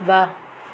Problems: constant background noise, low volume